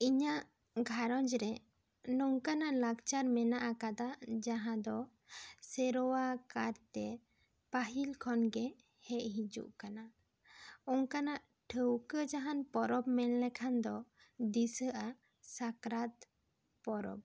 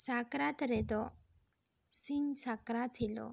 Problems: none marked